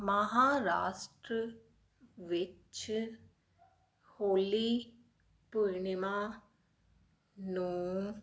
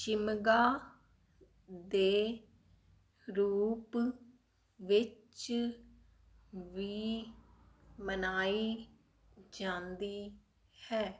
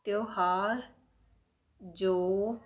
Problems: none marked